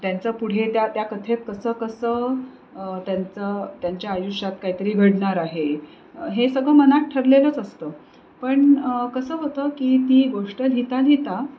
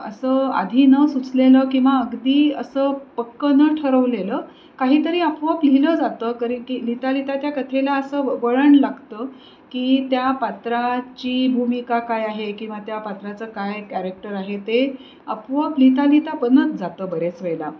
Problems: constant background noise